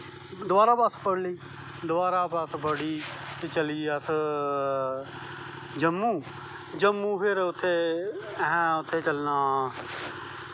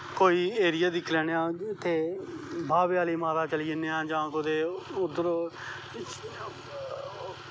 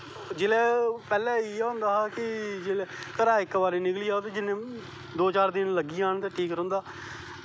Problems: constant background noise